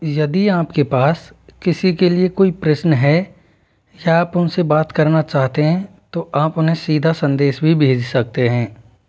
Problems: background sounds at intervals